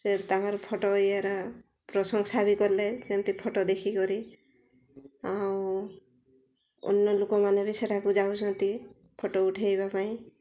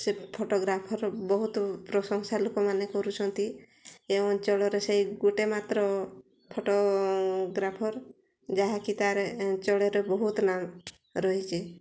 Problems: low volume